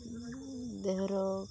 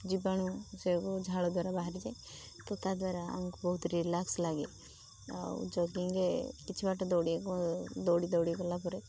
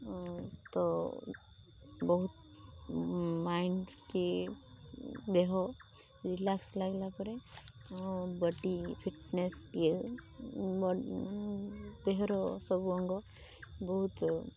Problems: constant background noise